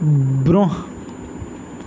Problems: constant background noise